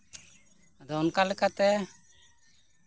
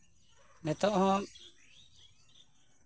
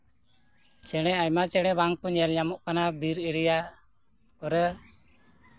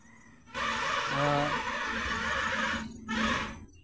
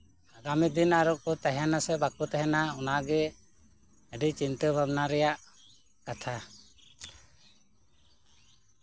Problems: constant background noise, background conversations at intervals